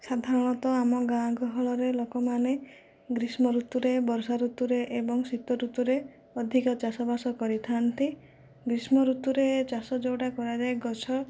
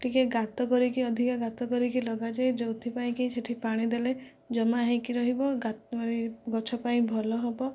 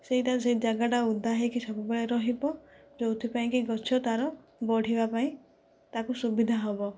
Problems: none marked